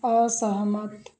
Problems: none marked